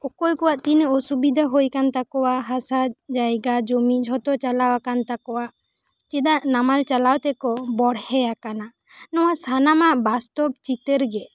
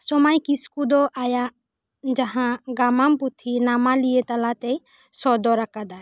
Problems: none marked